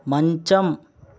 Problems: none marked